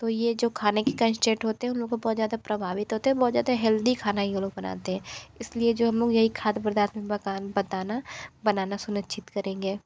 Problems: none marked